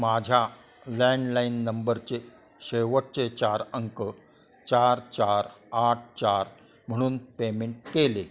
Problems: constant background noise, continuous background conversations